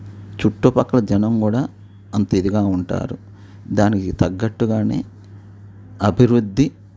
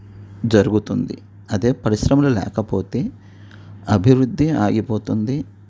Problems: none marked